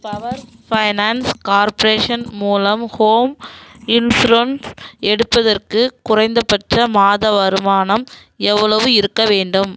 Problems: low volume